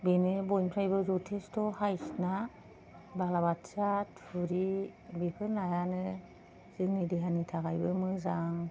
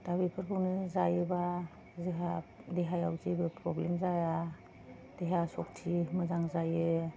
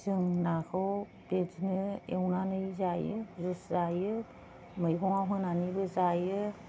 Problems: none marked